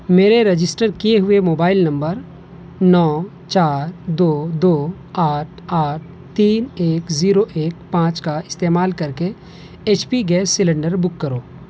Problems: constant background noise